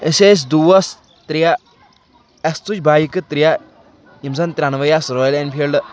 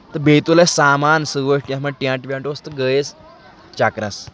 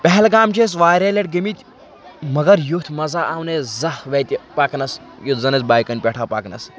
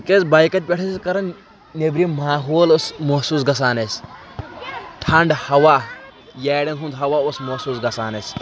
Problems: constant background noise